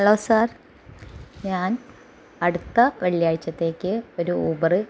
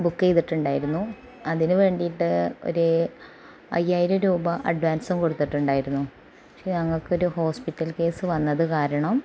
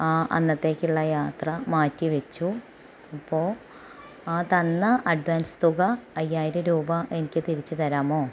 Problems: background sounds at intervals